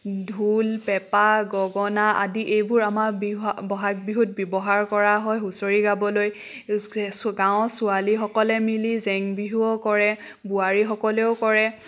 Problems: none marked